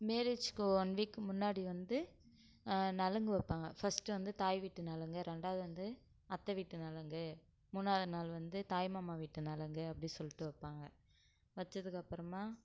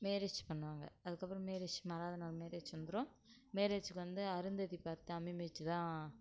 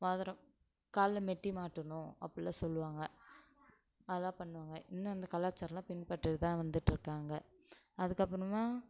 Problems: low volume